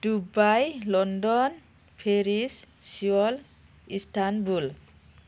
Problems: none marked